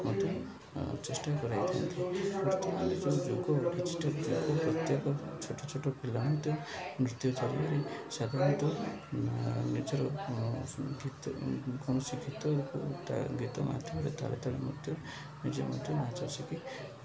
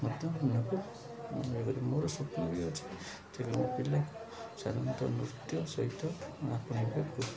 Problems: none marked